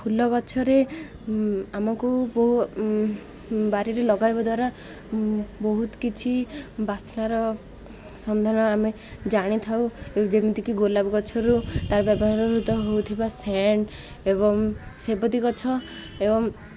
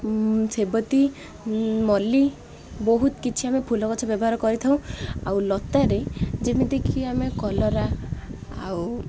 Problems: constant background noise